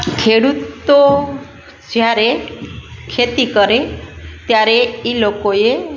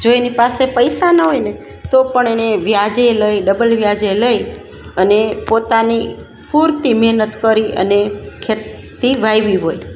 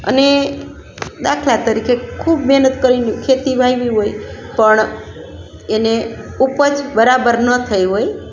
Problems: constant background noise